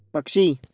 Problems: background sounds at intervals